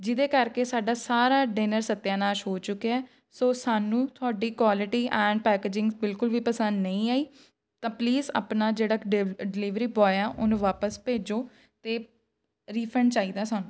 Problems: none marked